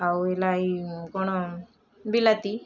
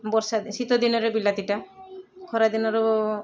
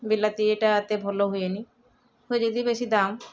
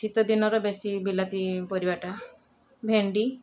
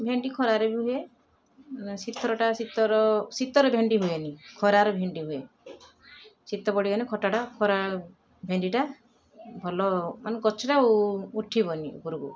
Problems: constant background noise, continuous background conversations